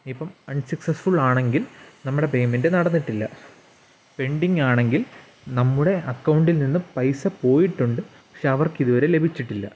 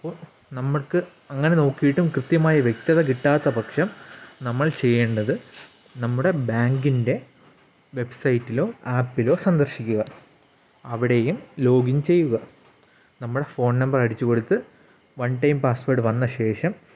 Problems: background sounds at intervals